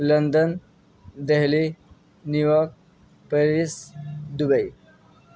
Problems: none marked